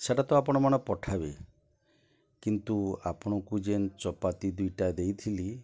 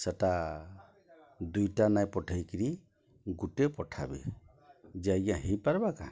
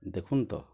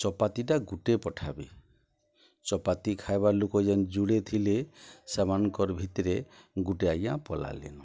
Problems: low volume